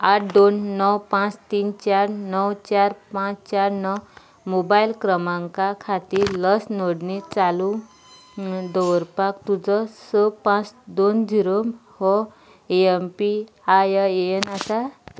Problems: none marked